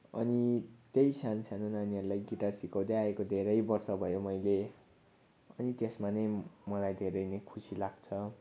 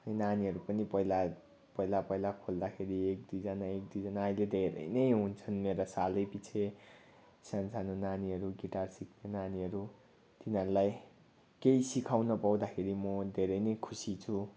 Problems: background sounds at intervals